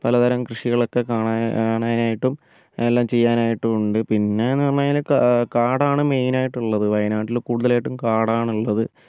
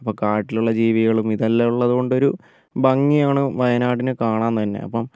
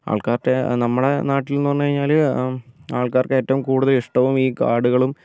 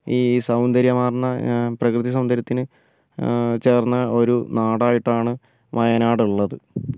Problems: low volume